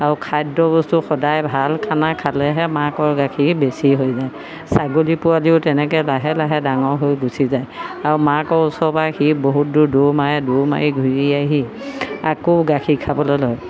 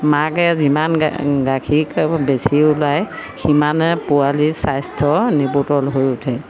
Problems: constant background noise